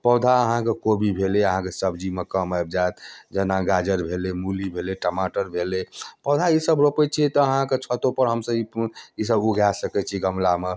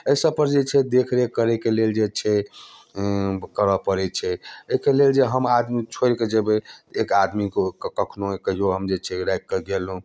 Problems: none marked